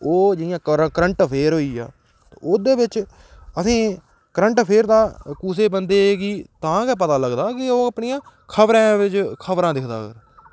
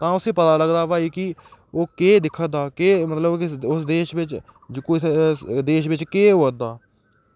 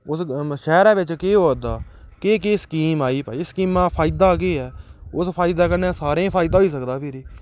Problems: background sounds at intervals